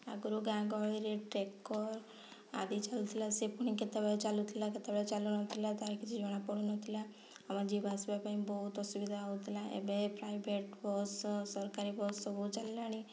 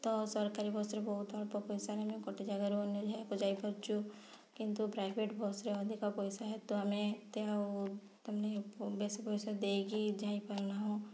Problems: low volume